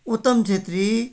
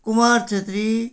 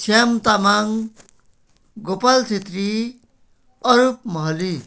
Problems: background sounds at intervals